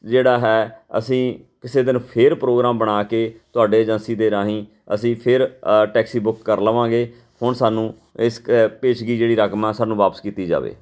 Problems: background sounds at intervals